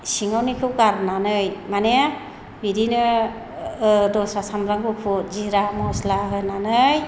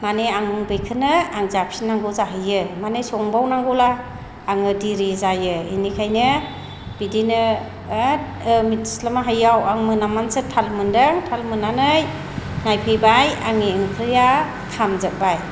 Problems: low volume